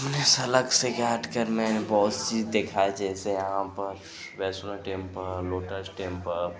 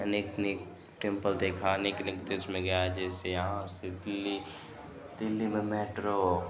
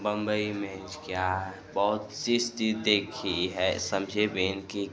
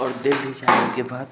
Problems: constant background noise